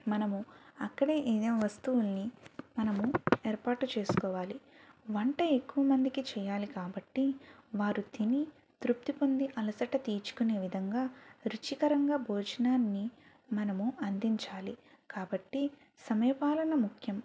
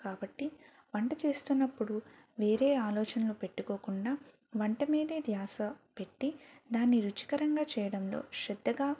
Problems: none marked